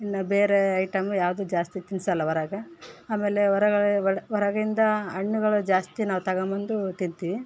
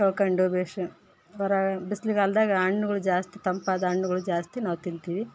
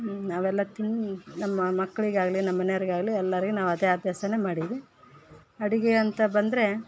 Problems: background sounds at intervals